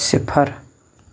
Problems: background sounds at intervals